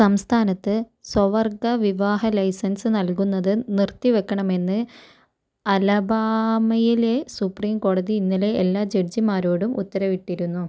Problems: none marked